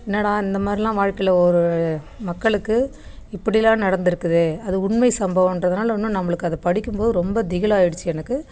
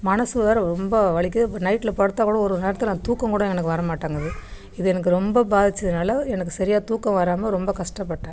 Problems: background sounds at intervals, background conversations at intervals